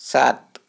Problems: constant background noise